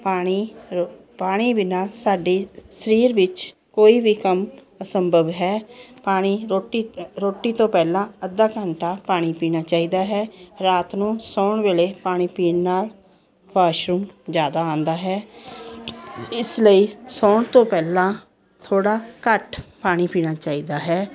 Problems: continuous background conversations